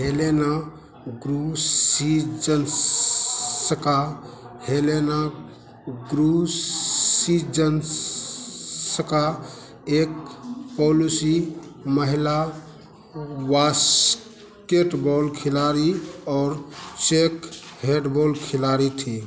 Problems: constant background noise